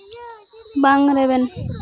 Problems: constant background noise, continuous background conversations